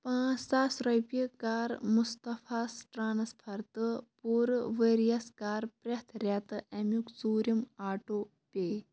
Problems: background sounds at intervals